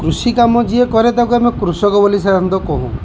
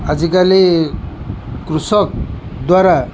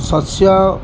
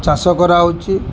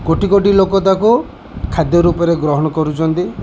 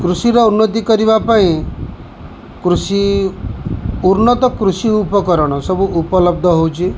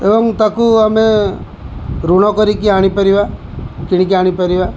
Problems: none marked